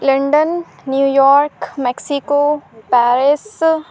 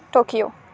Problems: constant background noise, background conversations at intervals